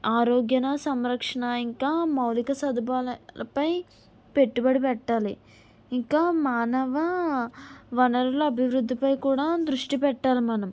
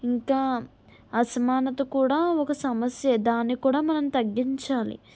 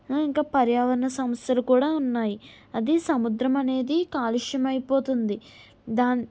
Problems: none marked